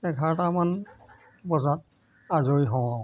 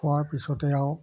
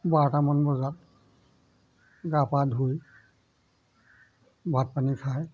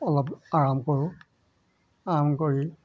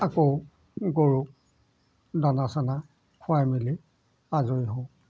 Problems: background sounds at intervals